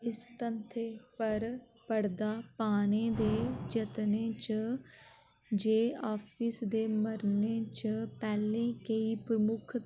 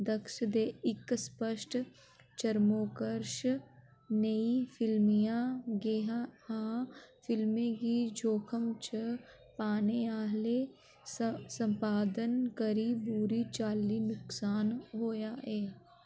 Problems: background sounds at intervals